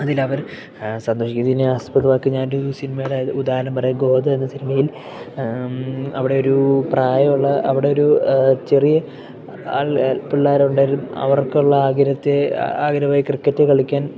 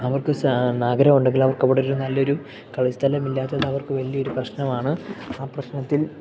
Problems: background sounds at intervals, background conversations at intervals